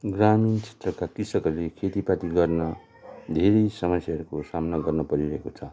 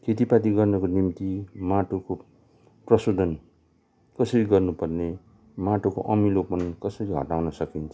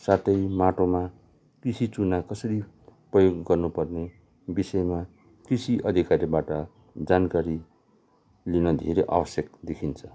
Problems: none marked